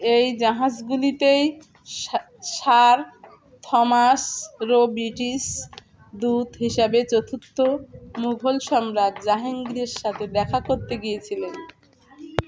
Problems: constant background noise, continuous background conversations